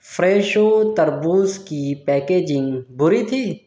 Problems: background sounds at intervals